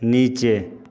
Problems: background conversations at intervals